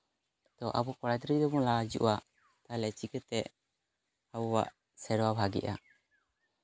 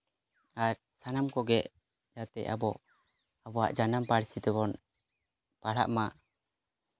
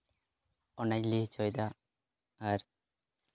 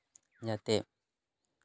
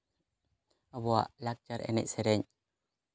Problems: none marked